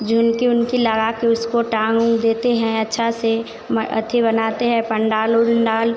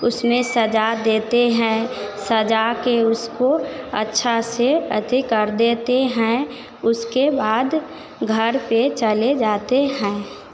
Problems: none marked